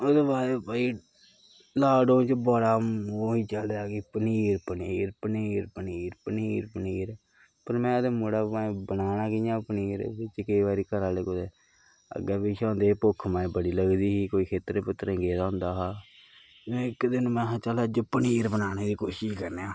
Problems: constant background noise, low volume